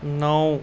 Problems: constant background noise